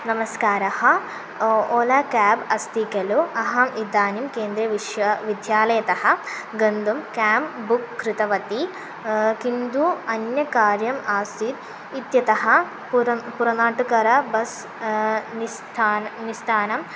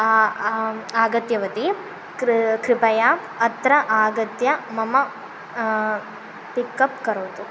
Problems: constant background noise